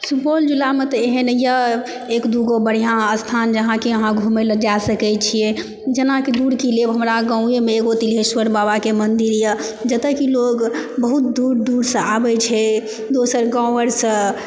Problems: background conversations at intervals